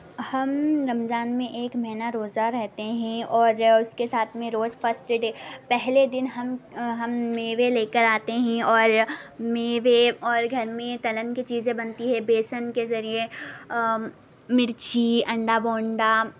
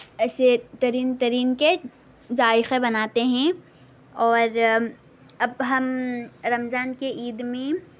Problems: background sounds at intervals, background conversations at intervals